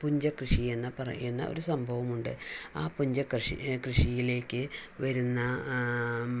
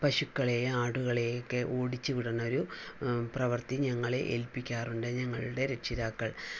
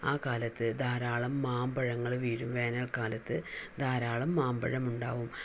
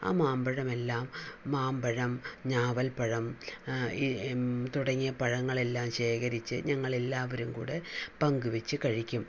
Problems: none marked